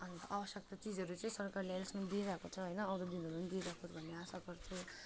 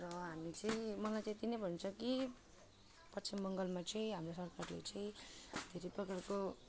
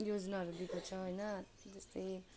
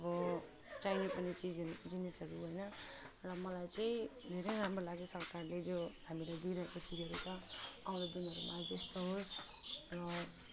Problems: constant background noise